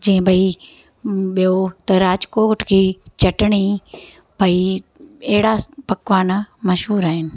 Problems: constant background noise